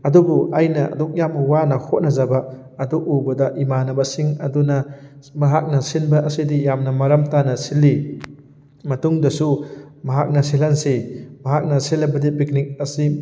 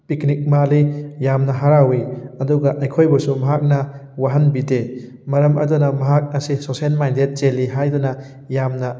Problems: none marked